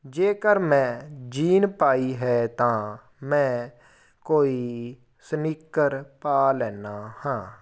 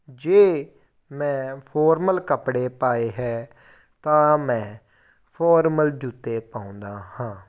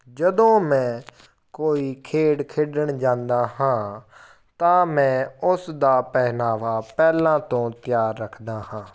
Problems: background sounds at intervals